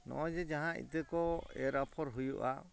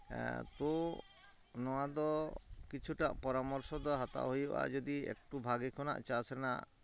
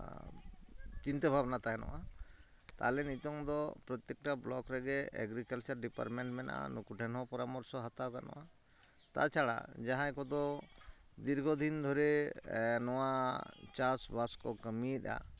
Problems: none marked